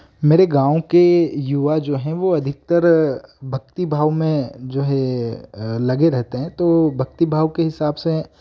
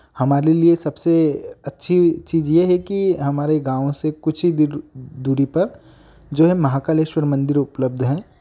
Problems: background sounds at intervals